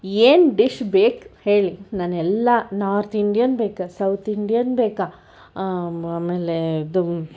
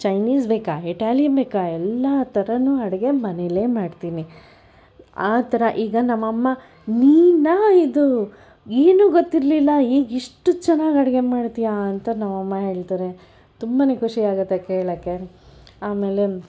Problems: none marked